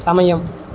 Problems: none marked